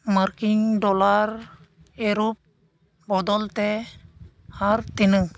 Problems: constant background noise